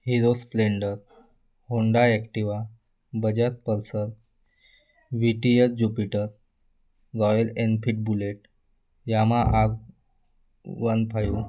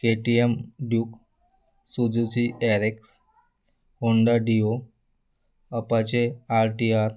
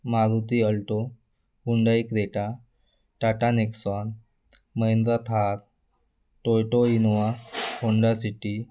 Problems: constant background noise, continuous background conversations